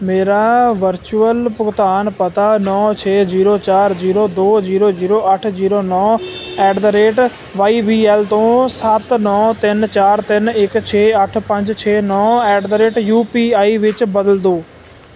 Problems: none marked